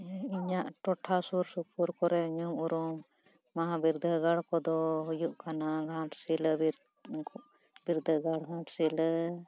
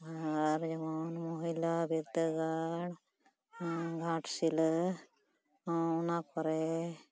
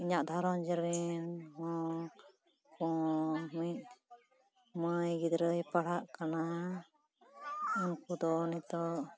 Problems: continuous background conversations